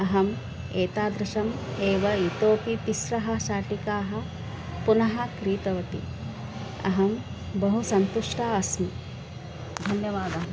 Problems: constant background noise